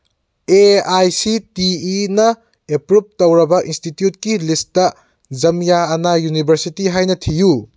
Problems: none marked